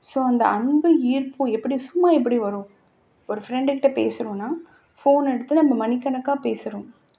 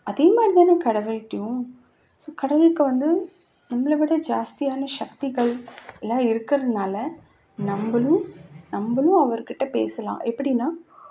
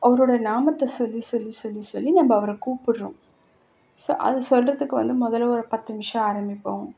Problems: background sounds at intervals